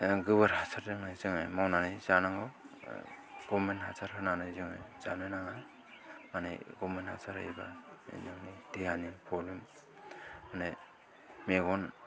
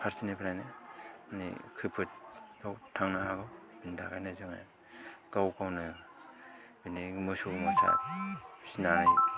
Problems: background sounds at intervals